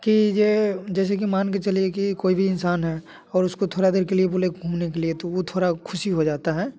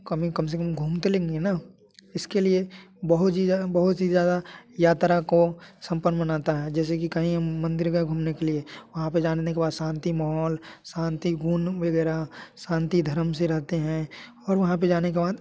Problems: none marked